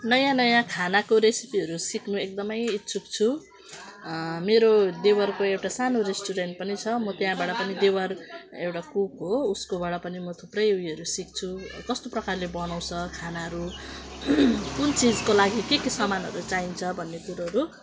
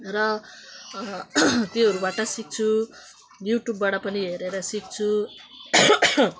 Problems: constant background noise